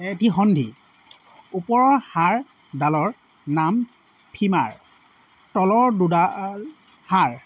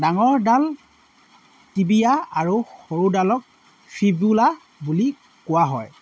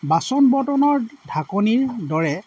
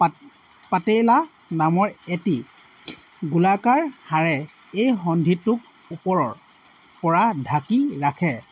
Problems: constant background noise